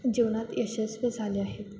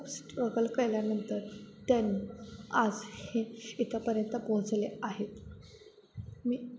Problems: constant background noise